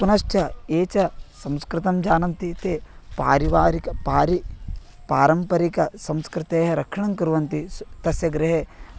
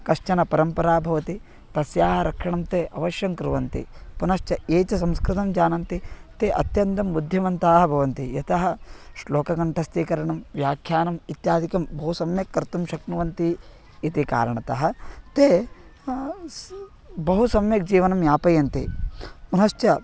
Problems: constant background noise